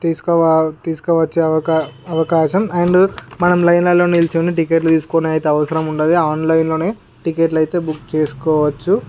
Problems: background sounds at intervals